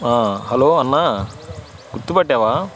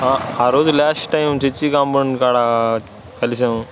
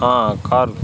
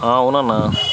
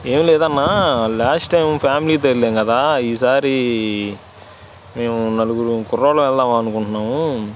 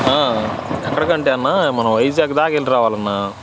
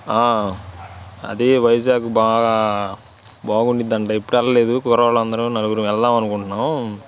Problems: constant background noise